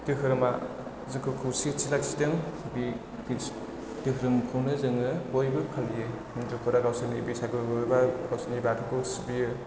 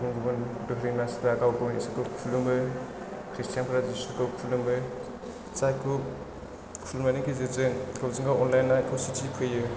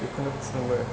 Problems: low volume